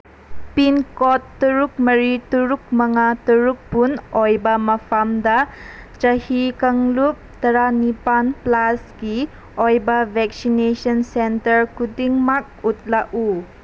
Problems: constant background noise